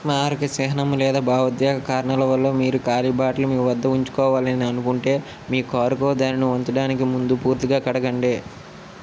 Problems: constant background noise